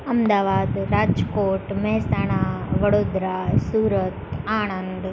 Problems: constant background noise